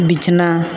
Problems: constant background noise